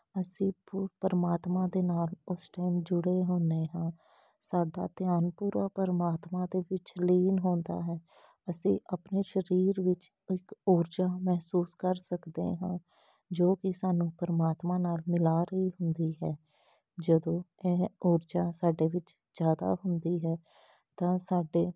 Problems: background sounds at intervals